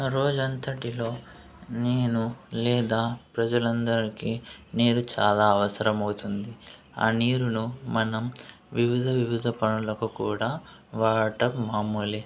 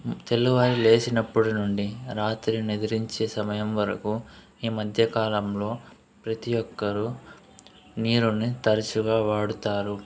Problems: constant background noise